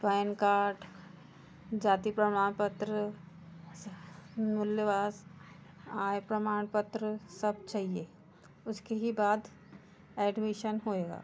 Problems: constant background noise, background conversations at intervals